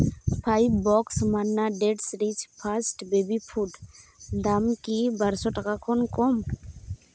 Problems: constant background noise